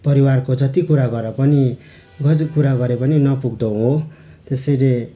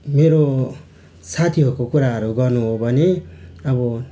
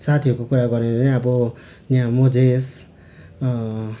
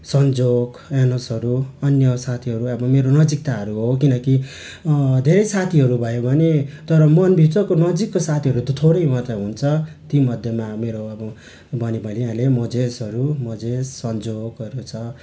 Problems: constant background noise